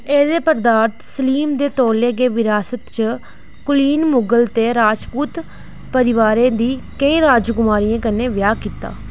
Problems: none marked